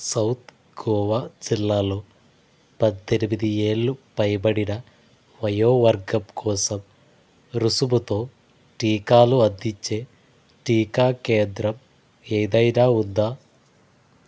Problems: constant background noise